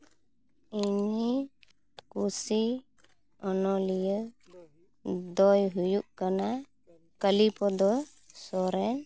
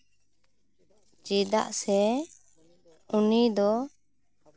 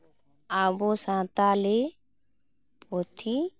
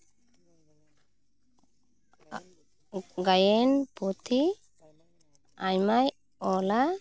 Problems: none marked